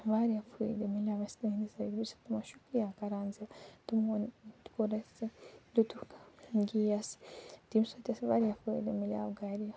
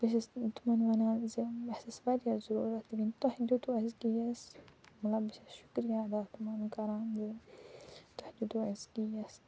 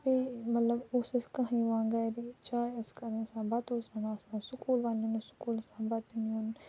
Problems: low volume